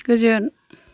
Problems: none marked